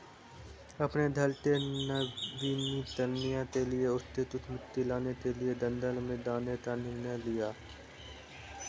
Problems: none marked